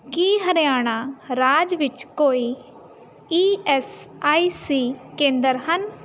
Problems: constant background noise